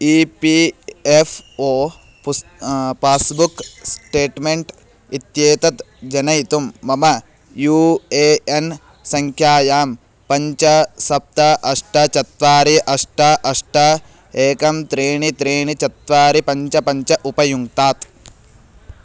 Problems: none marked